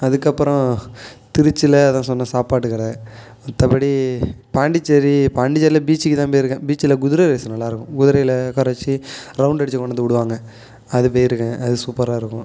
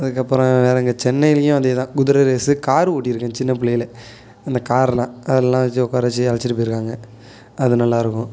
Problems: none marked